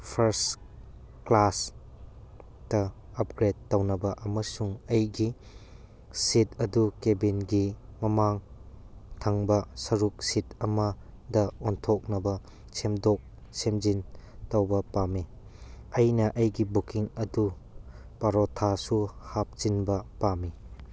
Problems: none marked